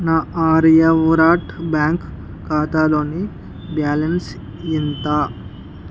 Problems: background sounds at intervals